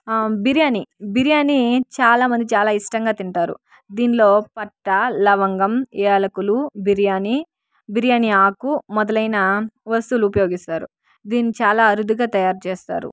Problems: background sounds at intervals